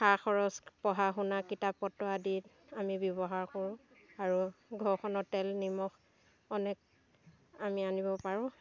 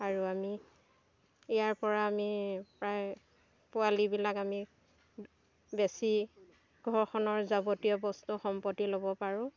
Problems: constant background noise, continuous background conversations